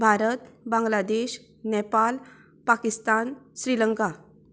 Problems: none marked